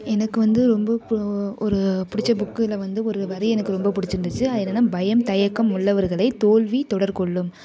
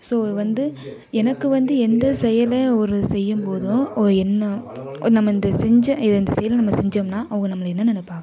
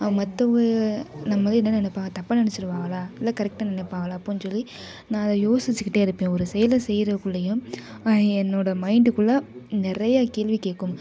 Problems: background sounds at intervals, background conversations at intervals